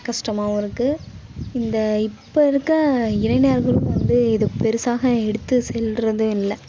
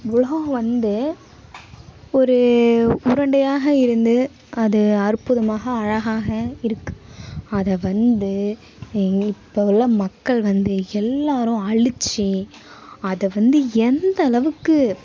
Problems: none marked